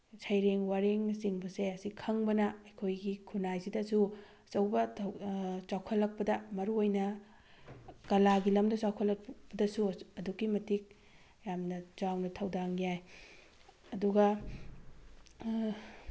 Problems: background sounds at intervals